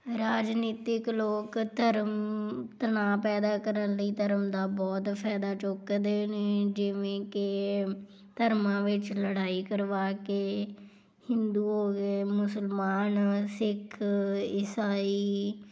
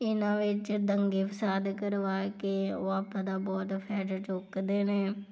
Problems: none marked